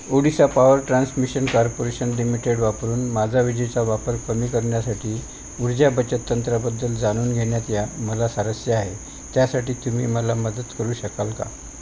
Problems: constant background noise